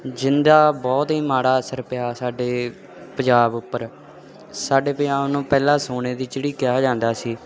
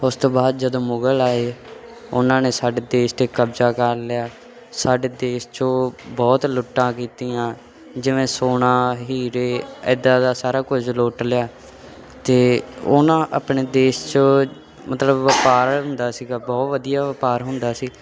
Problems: constant background noise